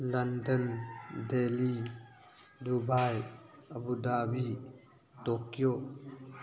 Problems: constant background noise